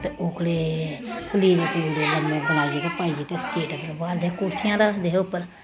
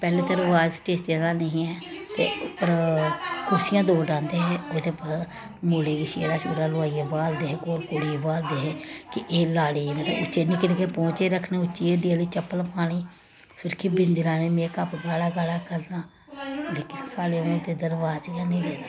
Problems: constant background noise